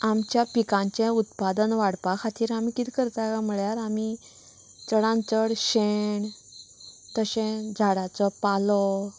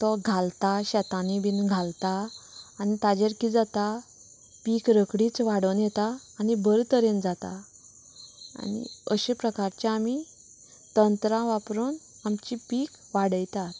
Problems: constant background noise